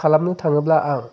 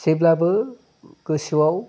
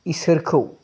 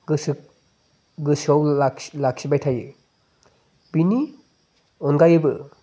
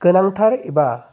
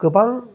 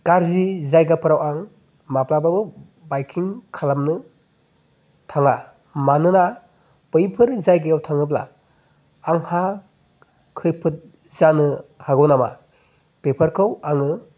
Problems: background conversations at intervals